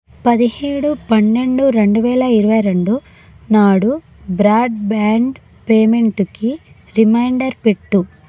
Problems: none marked